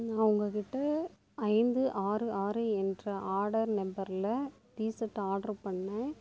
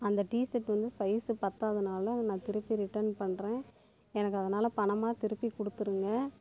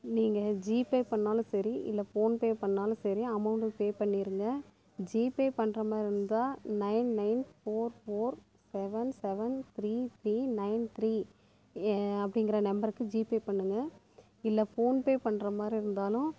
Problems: constant background noise